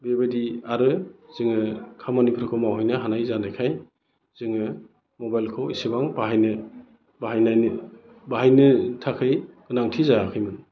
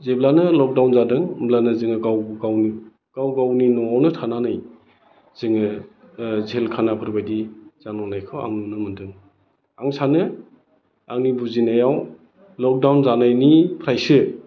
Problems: none marked